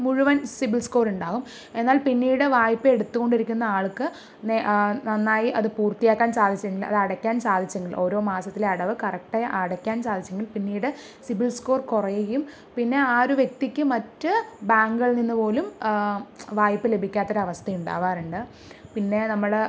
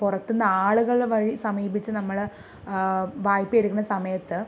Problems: none marked